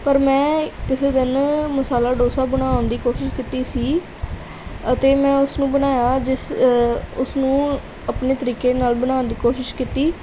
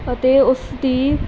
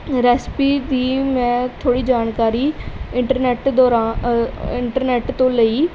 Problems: background sounds at intervals